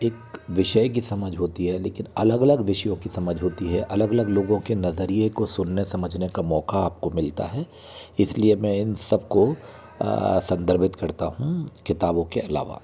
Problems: continuous background conversations